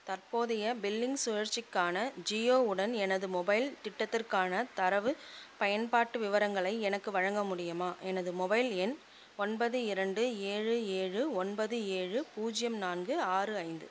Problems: constant background noise